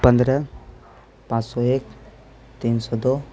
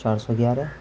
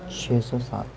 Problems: constant background noise